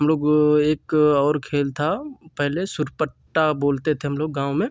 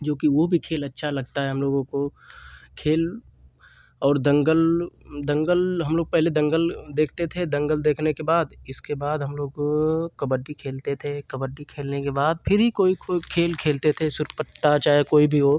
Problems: constant background noise